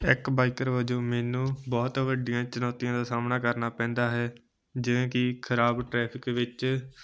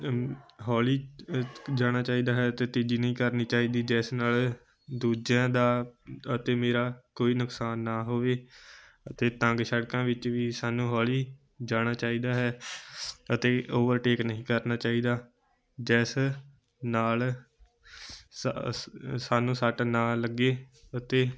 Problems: background sounds at intervals